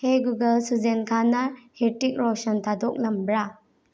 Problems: low volume